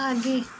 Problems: none marked